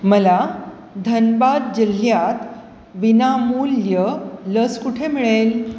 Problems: constant background noise, echo